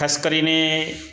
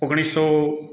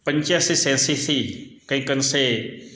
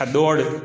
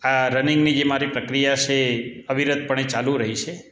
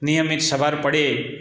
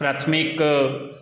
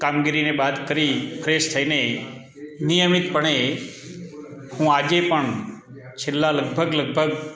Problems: background sounds at intervals